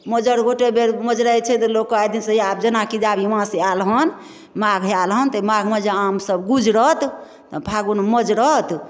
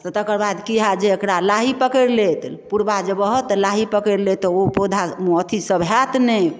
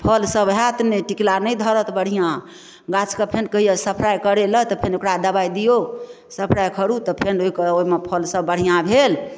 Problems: none marked